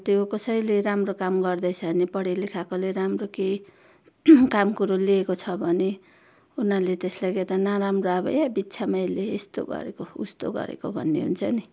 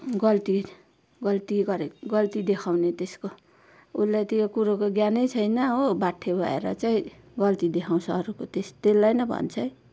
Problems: constant background noise